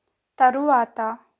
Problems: none marked